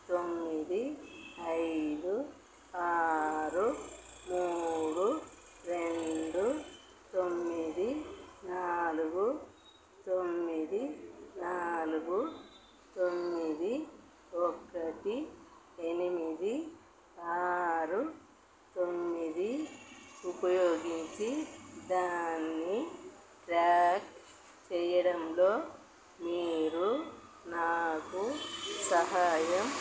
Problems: constant background noise, low volume